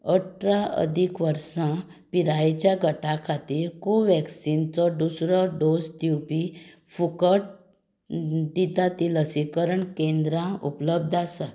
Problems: none marked